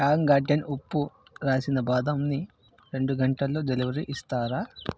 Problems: background sounds at intervals